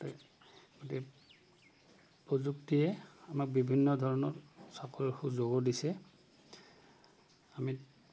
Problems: background sounds at intervals